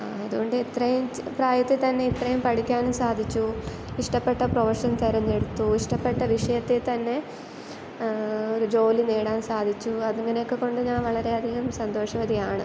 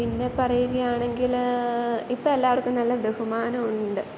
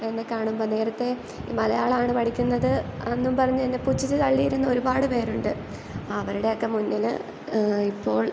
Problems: background sounds at intervals